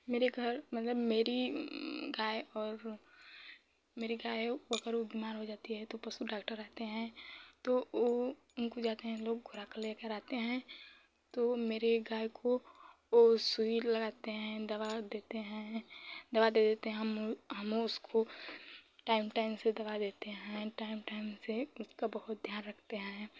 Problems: none marked